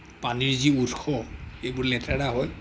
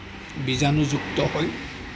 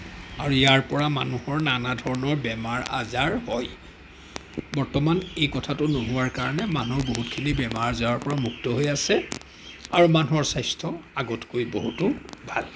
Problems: background sounds at intervals